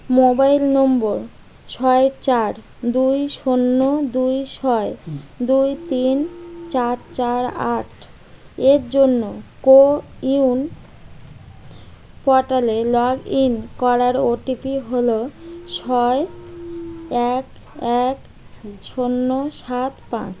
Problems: constant background noise